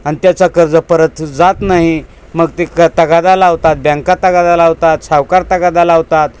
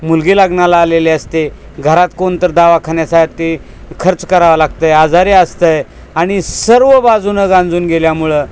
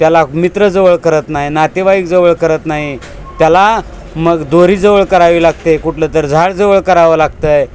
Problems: constant background noise, background conversations at intervals